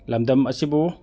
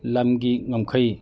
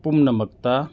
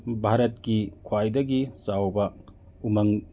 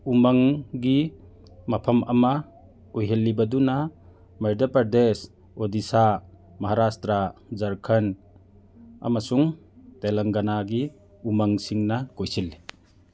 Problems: none marked